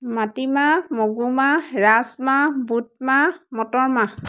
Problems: constant background noise